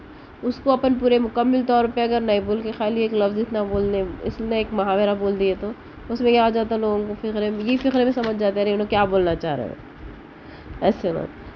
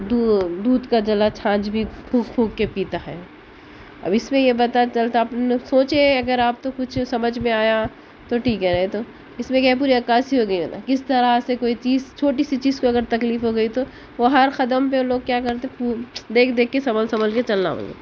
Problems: constant background noise